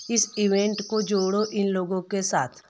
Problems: constant background noise